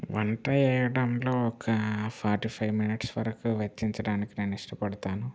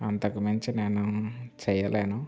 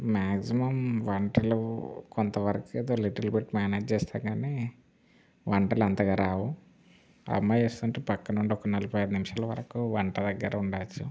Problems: none marked